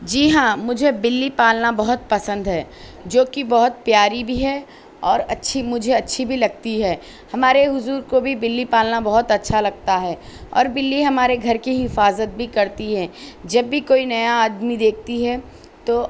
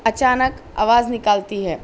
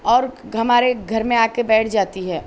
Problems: none marked